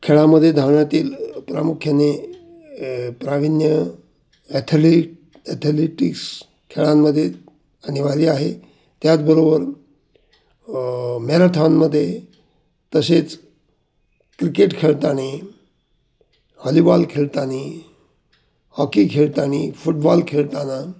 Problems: background sounds at intervals